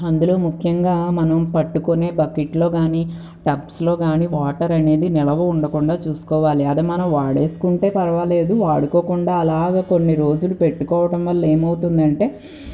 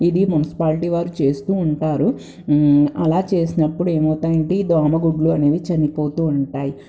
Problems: background sounds at intervals